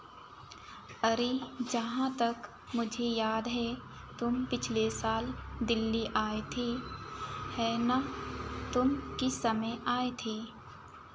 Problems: none marked